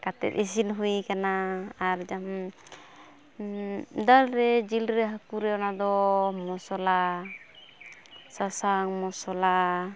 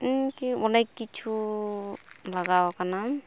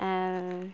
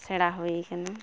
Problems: background sounds at intervals